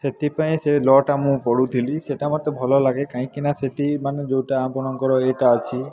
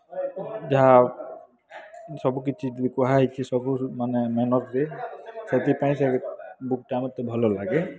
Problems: constant background noise